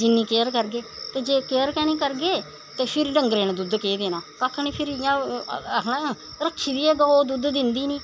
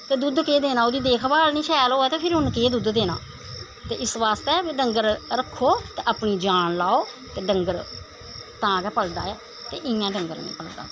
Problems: none marked